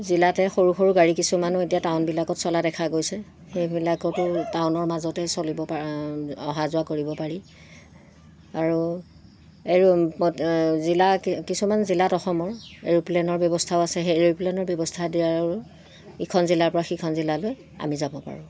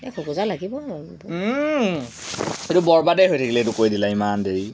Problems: constant background noise